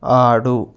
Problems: none marked